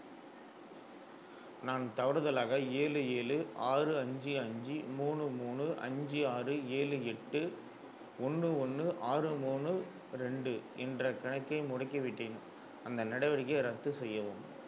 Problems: low volume